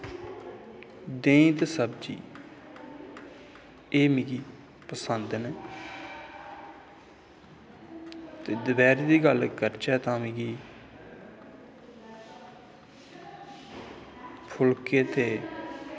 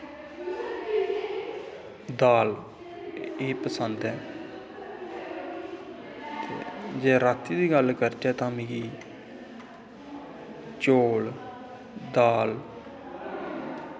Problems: constant background noise, echo